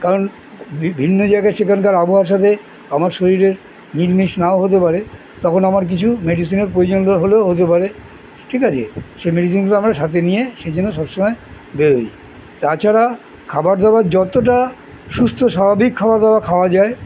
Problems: background sounds at intervals, background conversations at intervals